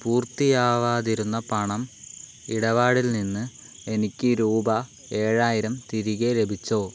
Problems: none marked